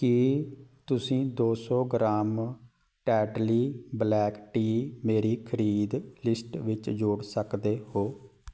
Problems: none marked